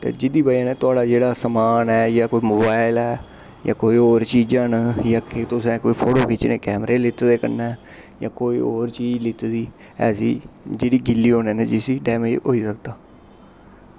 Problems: constant background noise